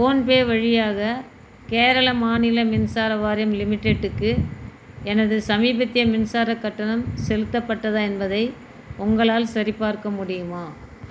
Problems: constant background noise